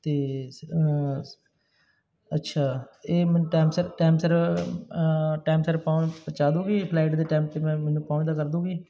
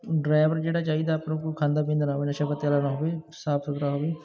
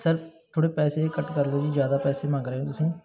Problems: none marked